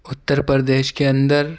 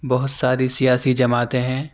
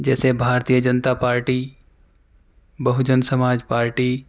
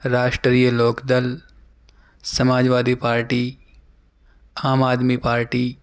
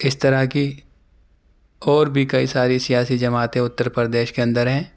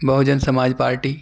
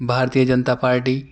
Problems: none marked